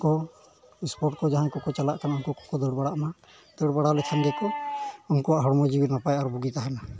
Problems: constant background noise